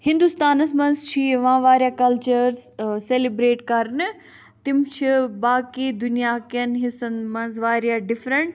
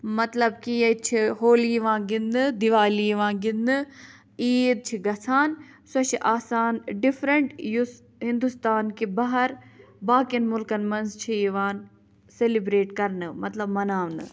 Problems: none marked